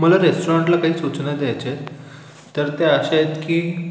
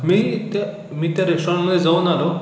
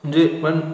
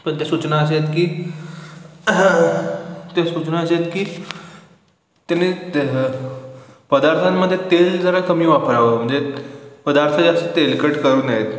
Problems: background sounds at intervals